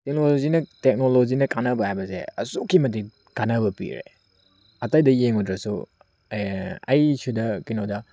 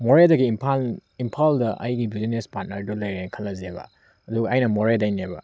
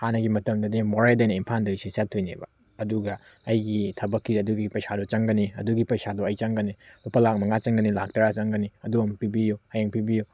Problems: none marked